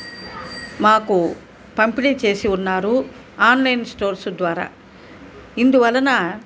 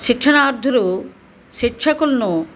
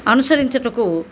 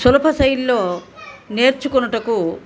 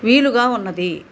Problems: background conversations at intervals